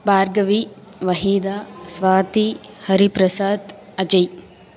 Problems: constant background noise, continuous background conversations